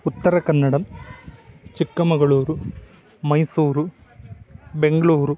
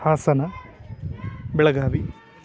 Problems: background sounds at intervals